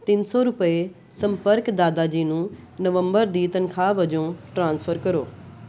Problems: background sounds at intervals